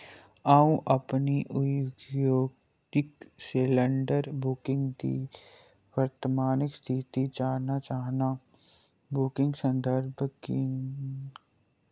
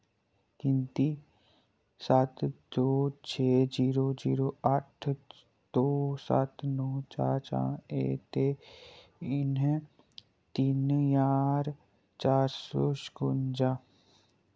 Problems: background sounds at intervals, low volume